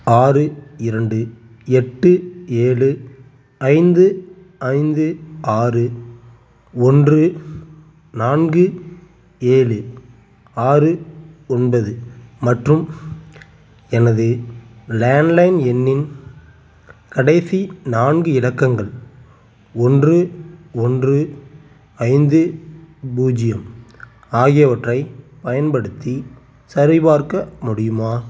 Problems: constant background noise